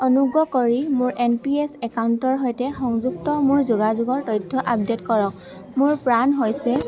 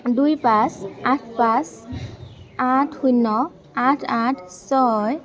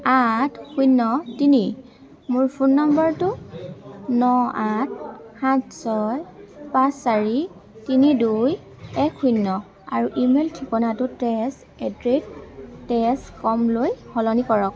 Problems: continuous background conversations